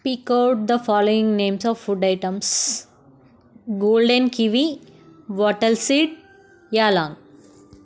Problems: none marked